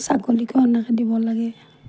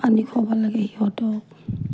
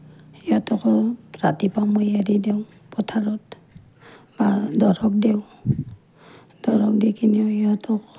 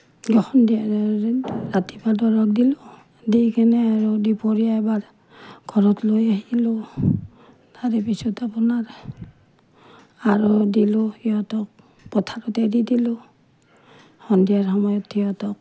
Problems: none marked